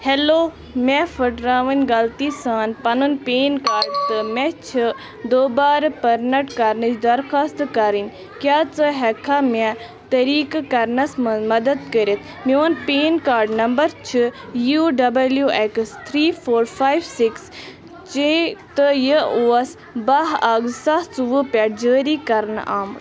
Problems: constant background noise, continuous background conversations